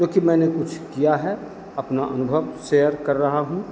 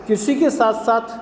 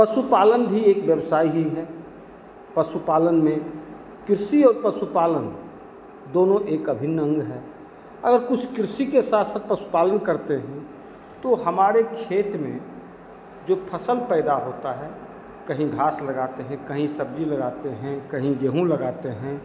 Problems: constant background noise, background conversations at intervals